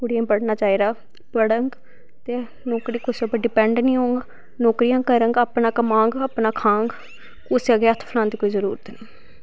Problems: background sounds at intervals